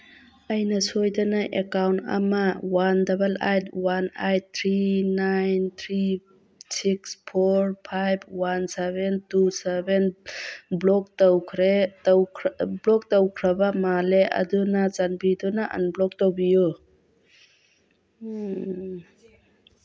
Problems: background sounds at intervals